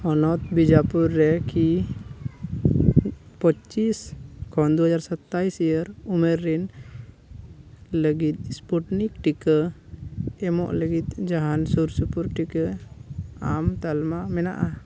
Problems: background sounds at intervals